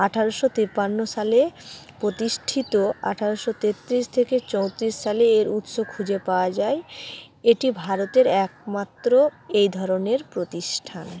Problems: background sounds at intervals, background conversations at intervals